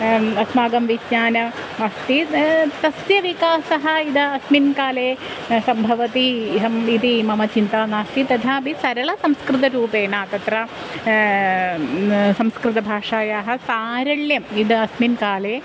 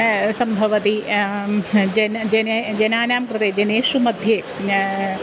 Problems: constant background noise